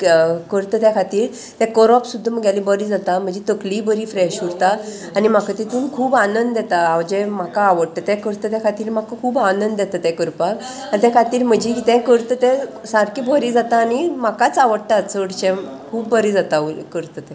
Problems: none marked